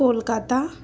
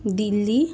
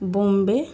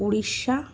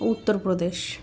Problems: constant background noise